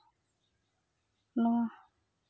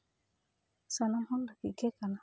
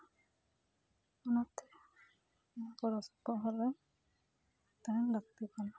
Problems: background sounds at intervals, background conversations at intervals